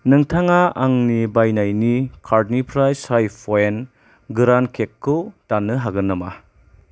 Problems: none marked